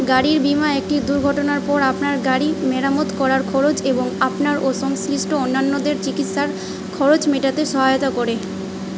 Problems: constant background noise